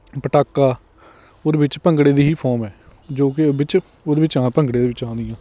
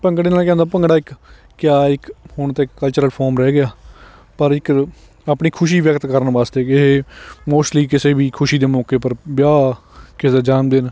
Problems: none marked